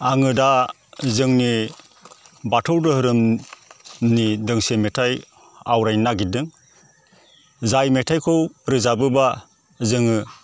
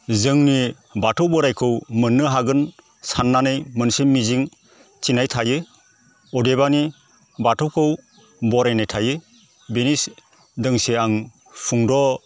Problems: constant background noise